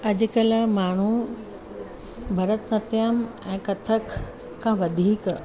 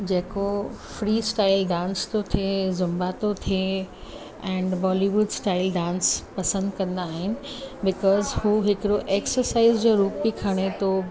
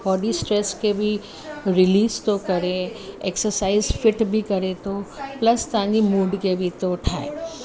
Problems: constant background noise